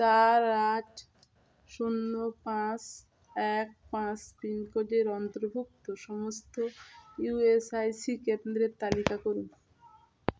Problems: constant background noise